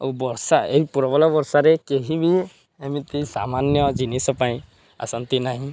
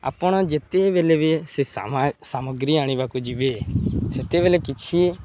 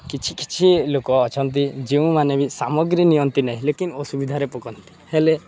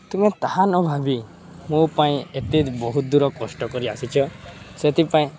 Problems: none marked